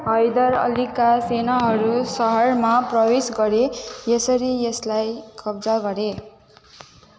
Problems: constant background noise